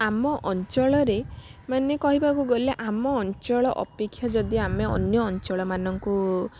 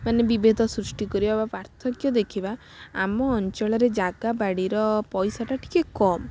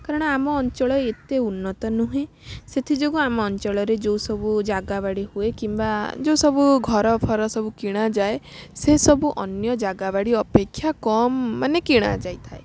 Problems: constant background noise